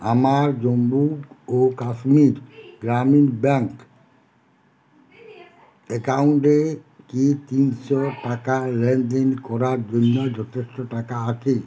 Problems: none marked